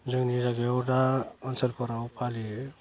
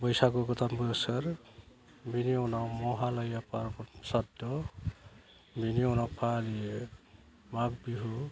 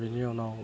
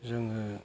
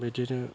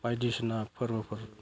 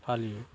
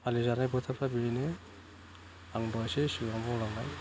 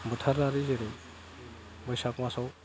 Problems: constant background noise